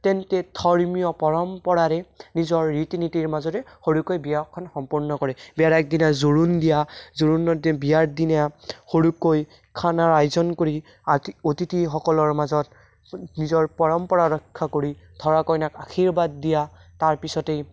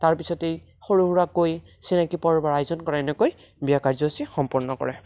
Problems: none marked